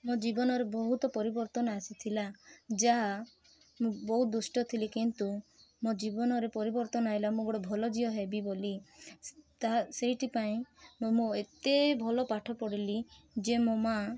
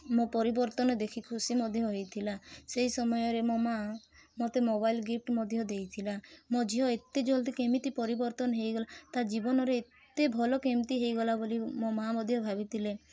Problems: constant background noise, background conversations at intervals